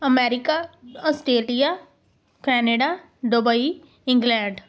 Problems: constant background noise